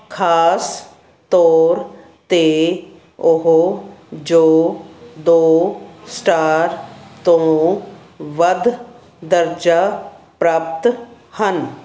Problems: none marked